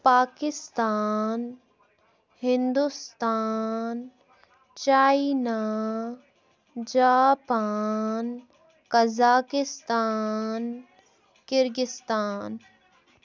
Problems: background sounds at intervals, background conversations at intervals